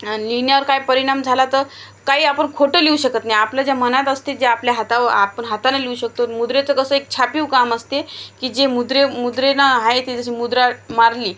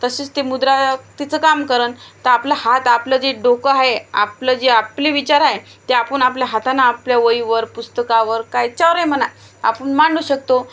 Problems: none marked